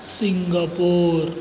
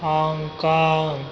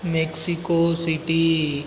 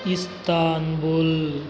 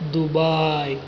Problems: background sounds at intervals